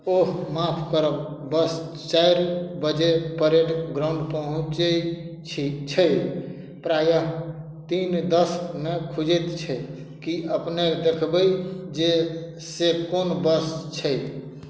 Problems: none marked